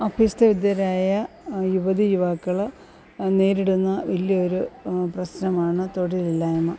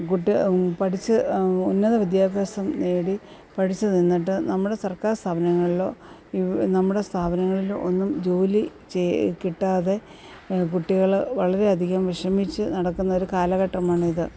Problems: constant background noise